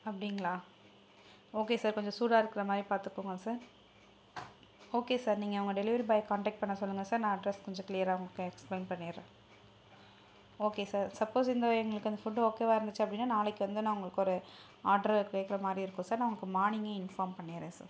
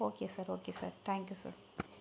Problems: none marked